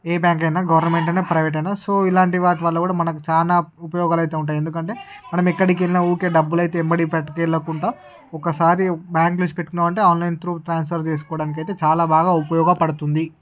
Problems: background sounds at intervals, background conversations at intervals